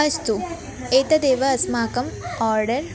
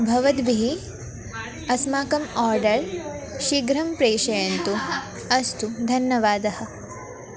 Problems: constant background noise, continuous background conversations